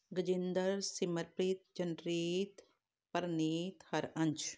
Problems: background sounds at intervals